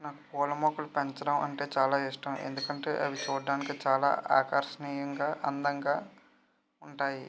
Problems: none marked